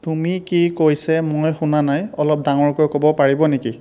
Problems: constant background noise